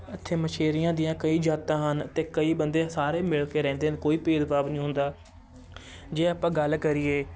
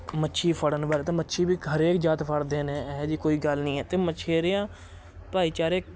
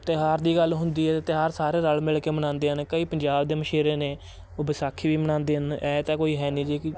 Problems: constant background noise, continuous background conversations